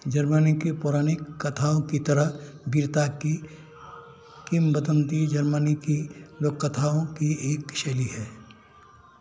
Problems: constant background noise